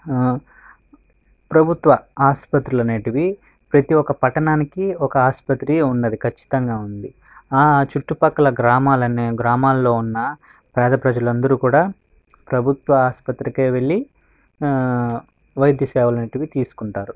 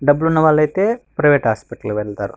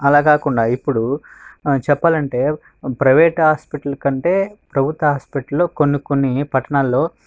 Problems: background sounds at intervals